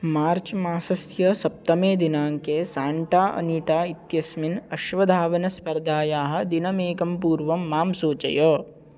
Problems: none marked